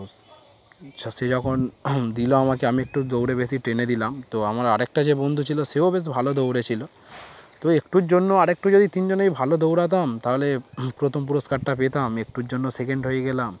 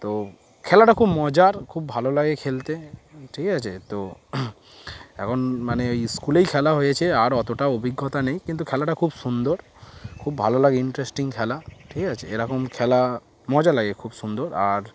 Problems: constant background noise